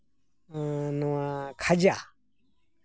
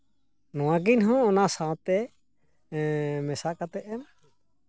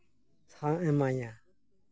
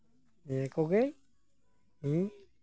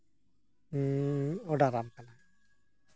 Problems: constant background noise